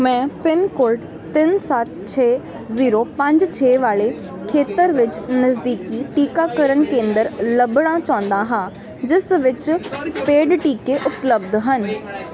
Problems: constant background noise